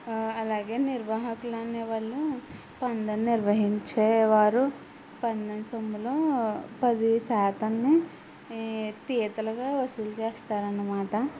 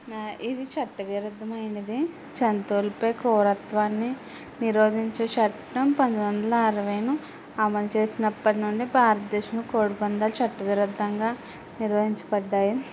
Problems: none marked